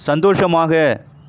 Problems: constant background noise